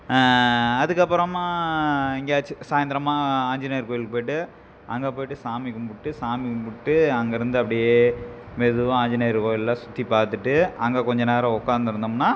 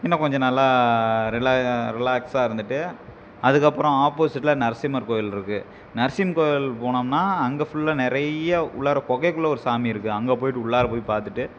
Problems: background sounds at intervals